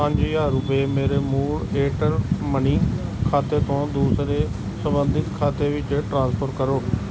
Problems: constant background noise